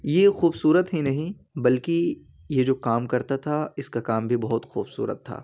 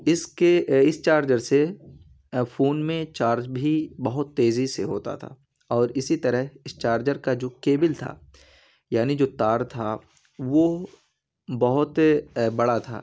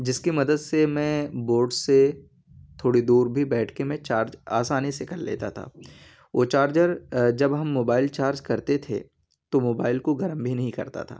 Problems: constant background noise